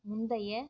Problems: low volume